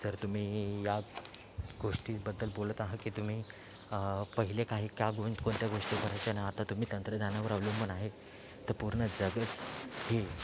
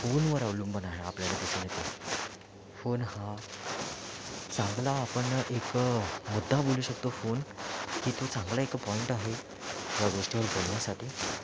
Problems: constant background noise, low volume